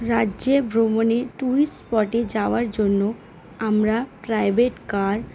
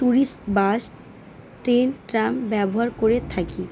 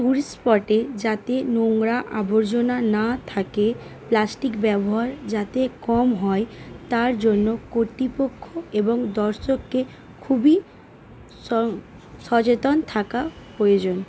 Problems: constant background noise